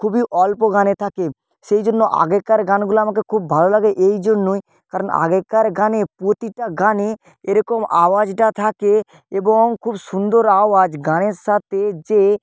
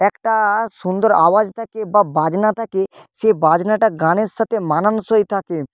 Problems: none marked